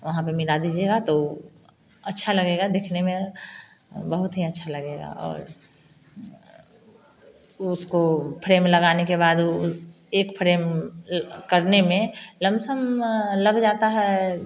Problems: none marked